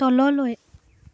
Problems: background conversations at intervals